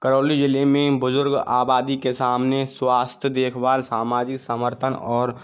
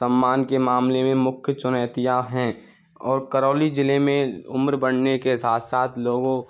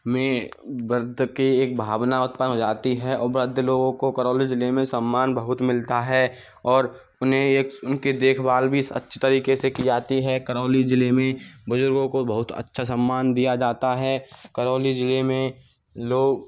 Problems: none marked